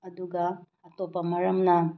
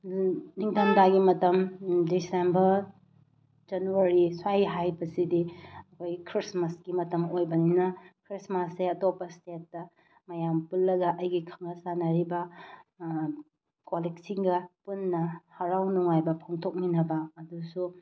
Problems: none marked